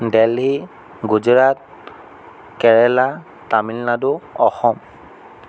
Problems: none marked